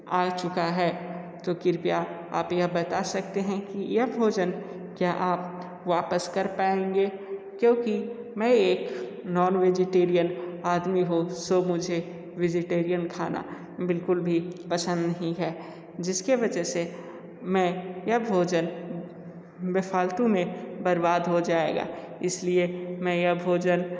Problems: echo